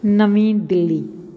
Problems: none marked